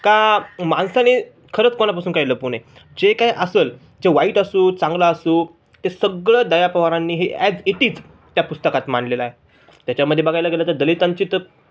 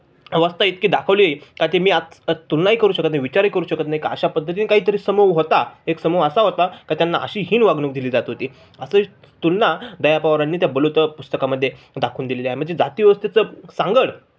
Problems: none marked